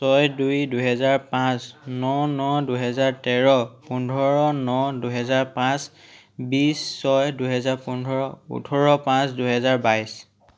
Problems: background conversations at intervals